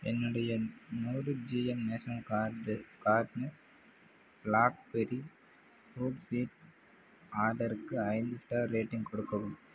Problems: low volume